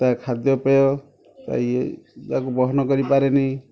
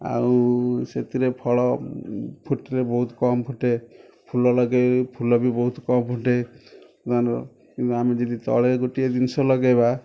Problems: background sounds at intervals, background conversations at intervals